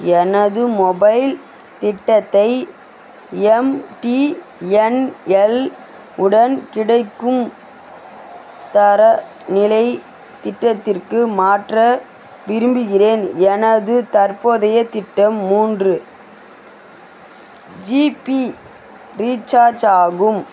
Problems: constant background noise